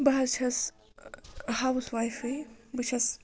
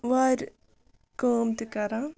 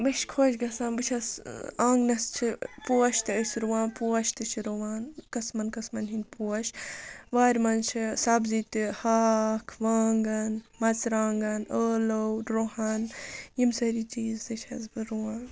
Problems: none marked